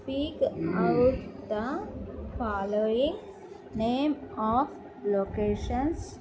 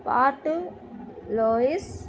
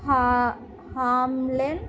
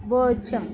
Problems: low volume